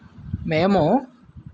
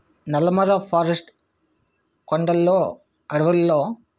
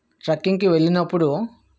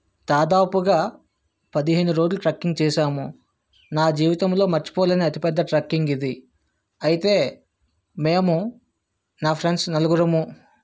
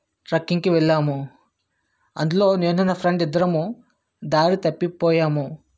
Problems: none marked